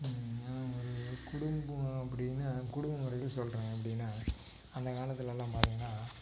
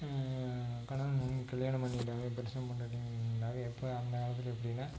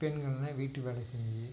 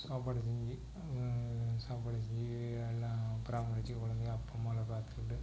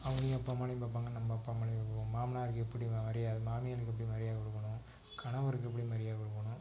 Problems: constant background noise, low volume